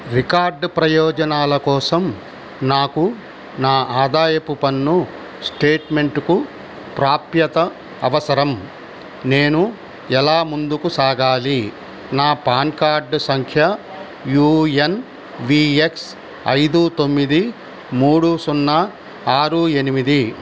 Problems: constant background noise